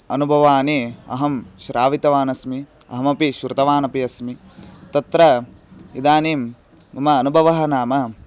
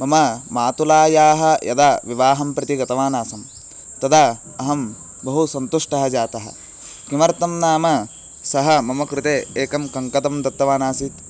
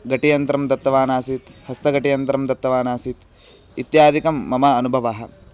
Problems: constant background noise